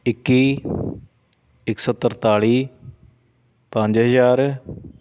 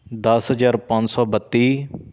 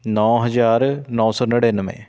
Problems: constant background noise